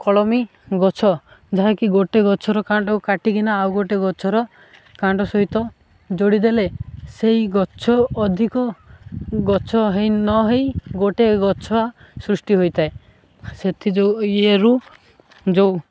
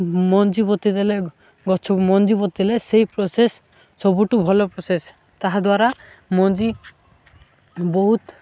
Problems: none marked